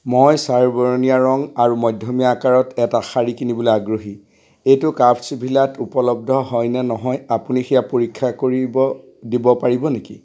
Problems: constant background noise